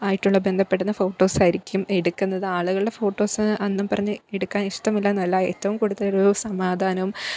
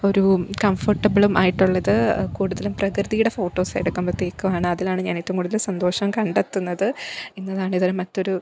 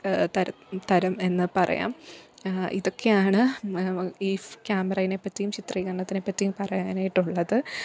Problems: background conversations at intervals